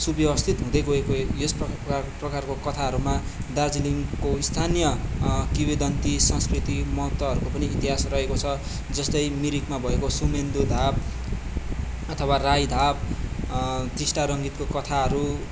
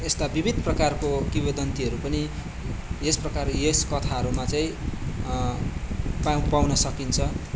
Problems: background sounds at intervals